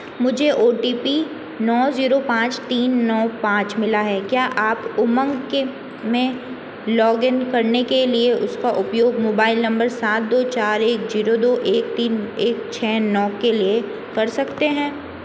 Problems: constant background noise